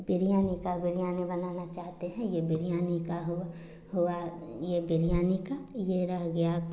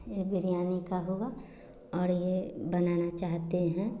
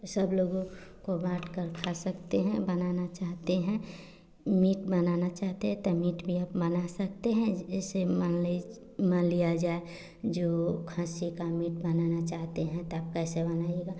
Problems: constant background noise